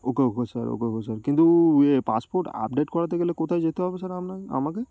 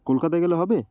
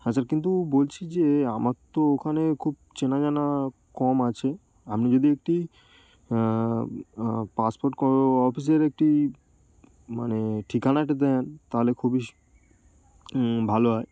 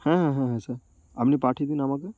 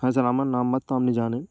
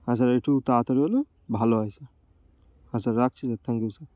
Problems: none marked